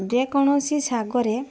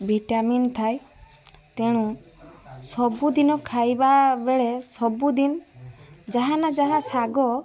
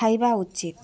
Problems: constant background noise, continuous background conversations